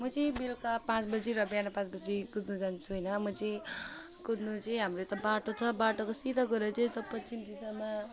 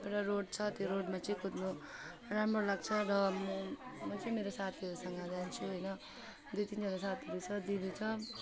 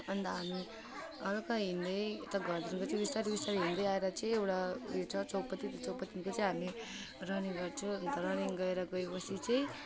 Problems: constant background noise